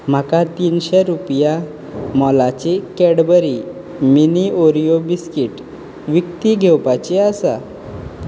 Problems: none marked